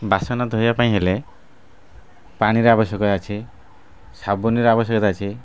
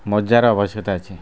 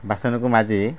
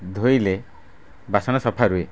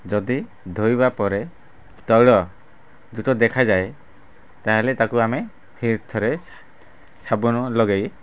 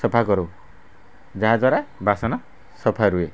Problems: constant background noise